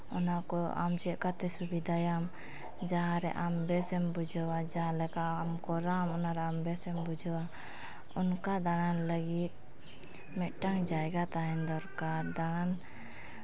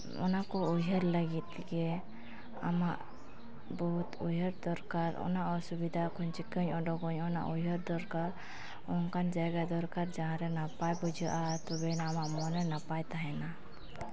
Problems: constant background noise, background conversations at intervals